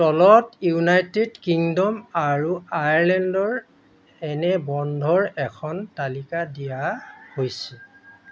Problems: constant background noise